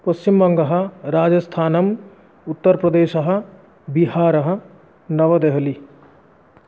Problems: none marked